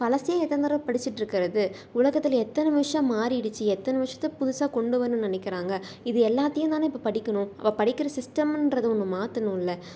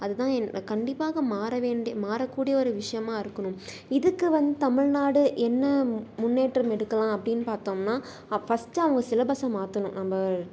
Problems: none marked